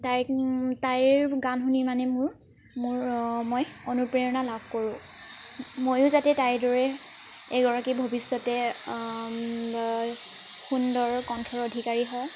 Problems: constant background noise